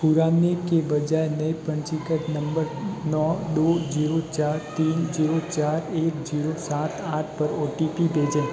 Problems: constant background noise, background conversations at intervals